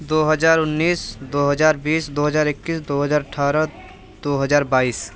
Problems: constant background noise, background conversations at intervals